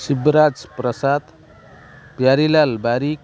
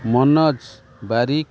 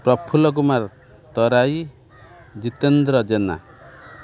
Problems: constant background noise